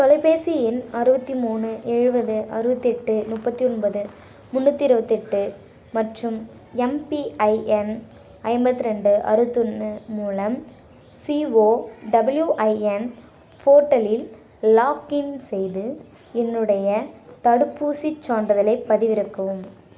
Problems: none marked